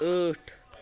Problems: background conversations at intervals